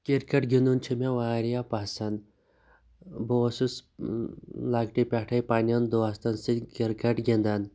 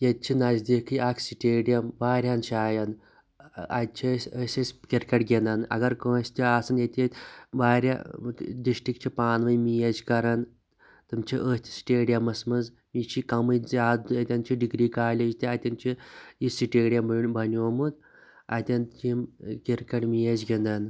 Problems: none marked